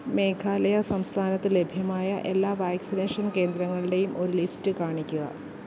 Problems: none marked